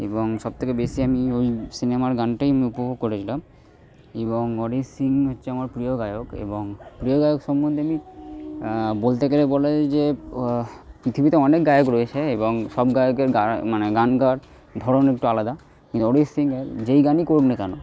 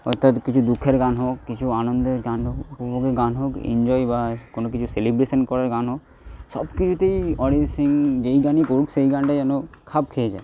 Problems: background sounds at intervals